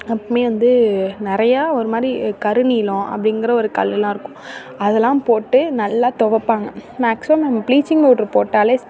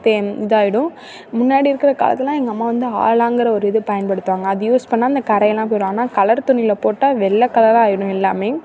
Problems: none marked